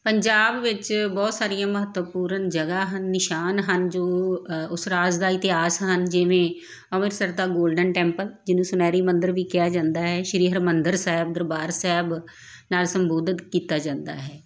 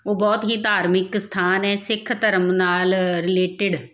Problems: background sounds at intervals